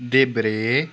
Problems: background sounds at intervals